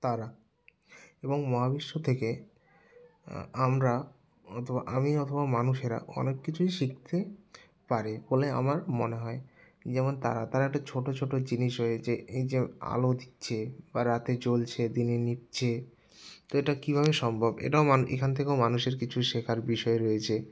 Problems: none marked